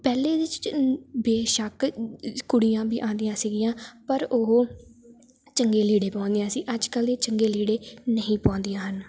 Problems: background sounds at intervals